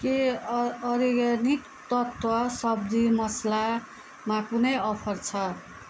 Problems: none marked